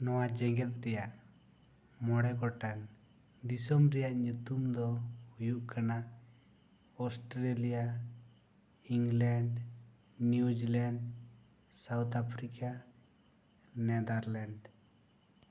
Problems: none marked